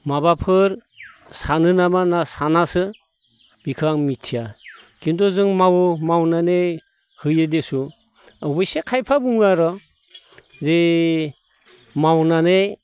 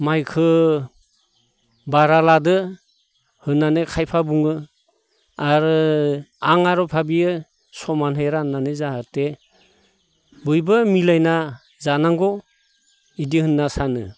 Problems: none marked